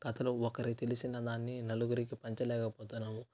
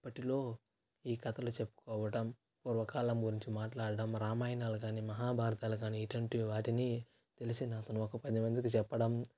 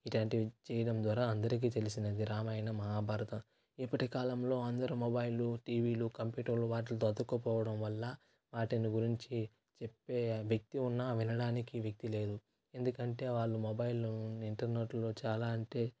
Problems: constant background noise